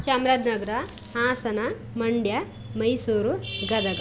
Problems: none marked